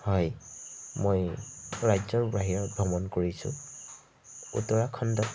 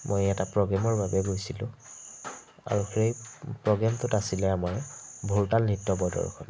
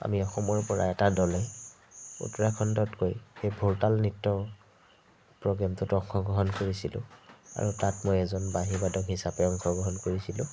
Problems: constant background noise